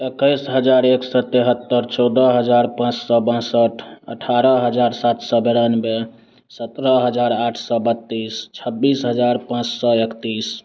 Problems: constant background noise, continuous background conversations